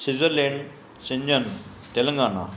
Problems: constant background noise, echo